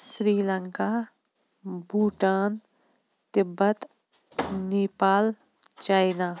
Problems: background sounds at intervals